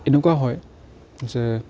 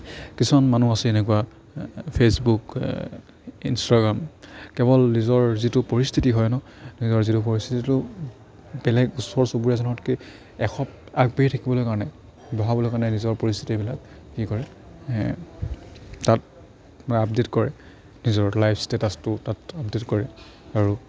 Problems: background conversations at intervals